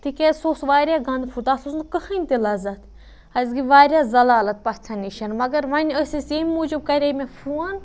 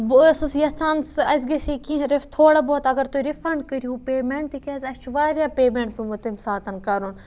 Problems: none marked